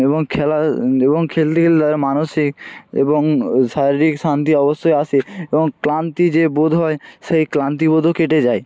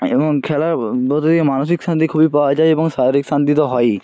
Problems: background sounds at intervals